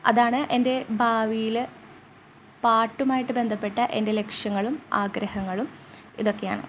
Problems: none marked